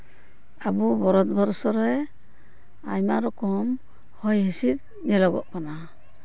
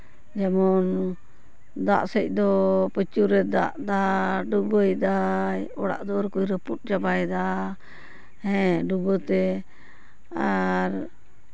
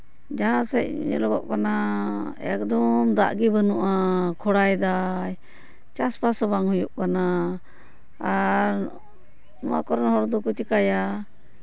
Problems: none marked